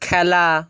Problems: none marked